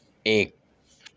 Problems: none marked